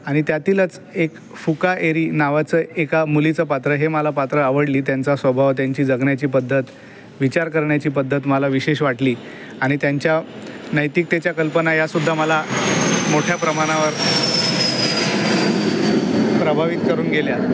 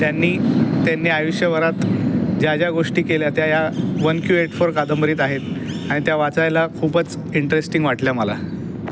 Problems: constant background noise